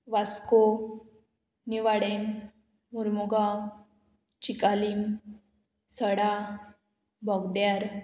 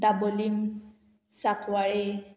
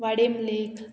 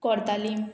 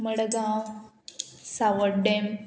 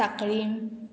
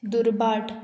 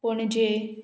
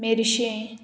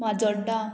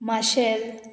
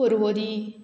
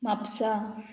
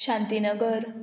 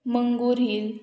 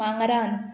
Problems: constant background noise